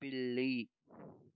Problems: low volume